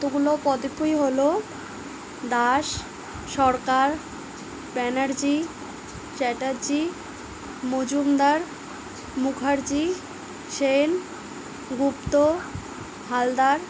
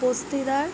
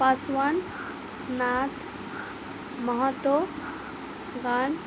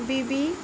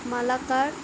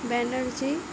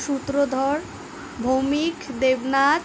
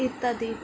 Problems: none marked